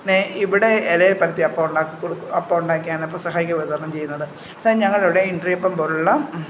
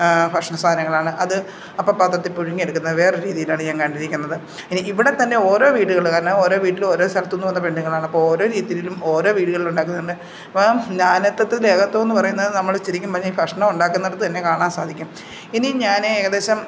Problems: background sounds at intervals